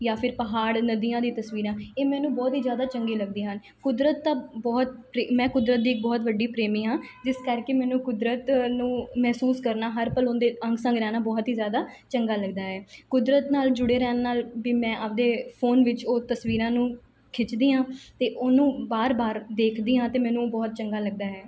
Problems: background sounds at intervals